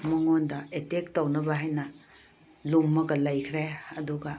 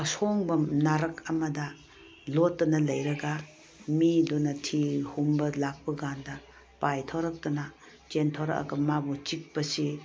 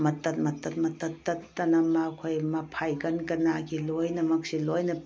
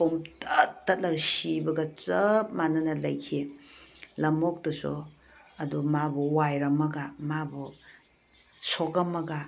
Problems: none marked